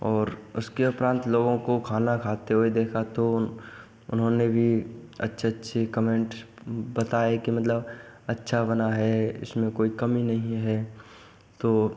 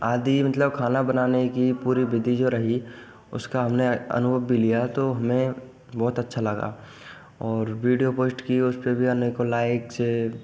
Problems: none marked